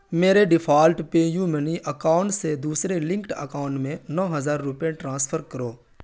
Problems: none marked